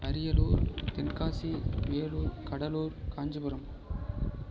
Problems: none marked